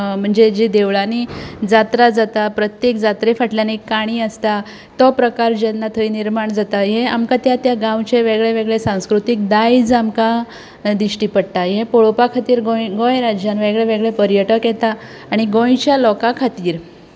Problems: constant background noise, continuous background conversations